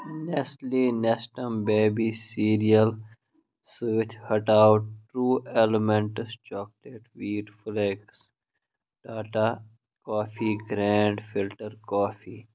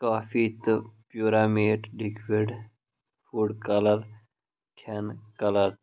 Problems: none marked